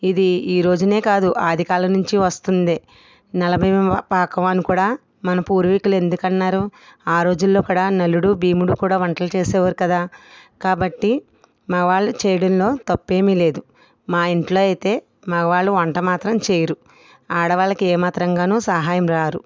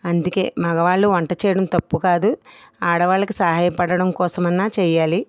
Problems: none marked